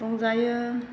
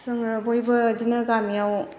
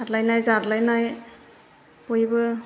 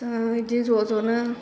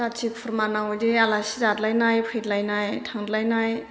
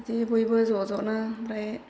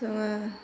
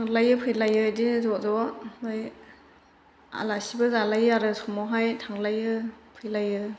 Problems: constant background noise